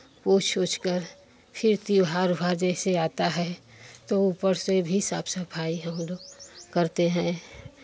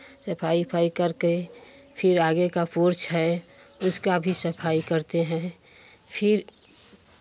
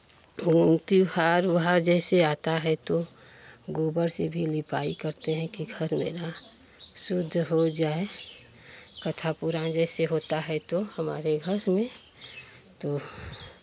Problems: constant background noise, background conversations at intervals